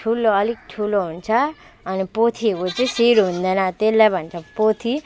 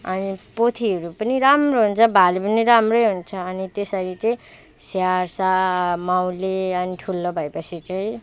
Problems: background sounds at intervals